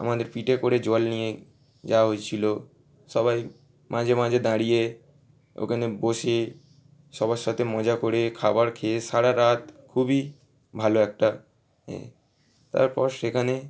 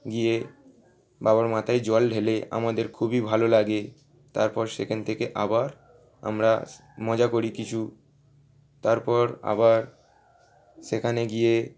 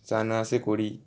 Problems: none marked